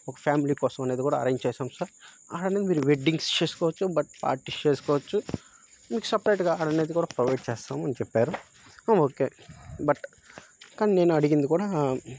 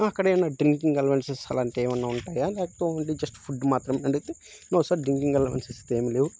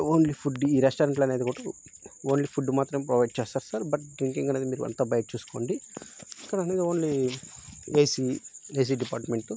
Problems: none marked